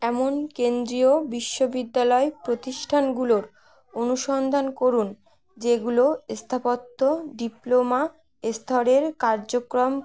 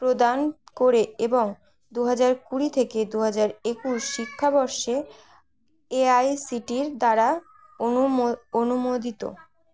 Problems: background conversations at intervals